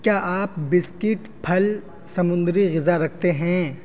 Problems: constant background noise